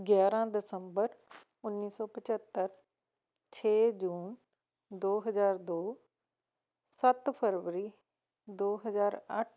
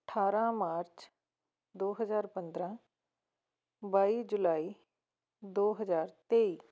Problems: background sounds at intervals